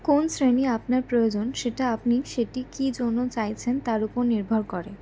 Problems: none marked